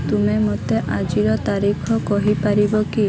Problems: constant background noise